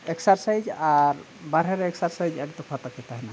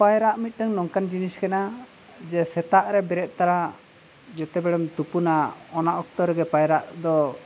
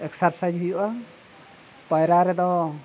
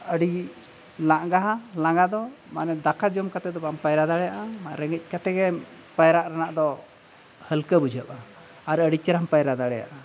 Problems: none marked